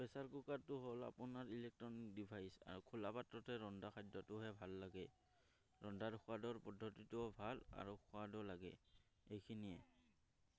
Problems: none marked